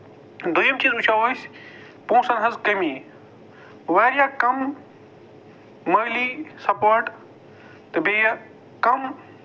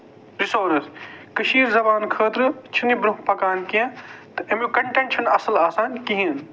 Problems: constant background noise